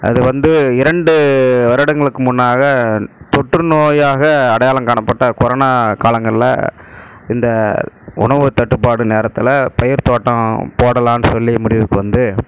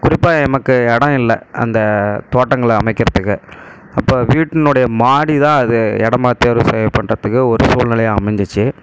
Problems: background sounds at intervals